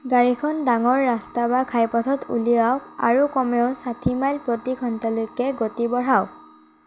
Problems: none marked